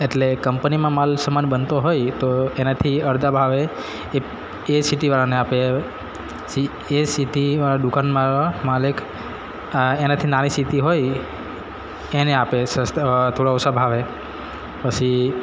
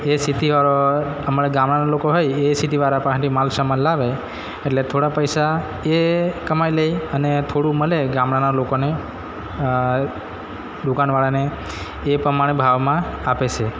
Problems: constant background noise, background conversations at intervals